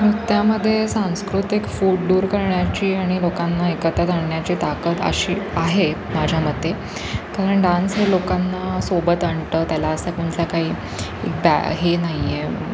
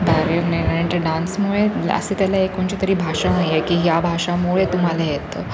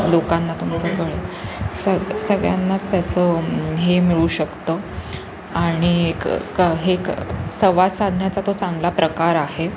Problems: constant background noise, background conversations at intervals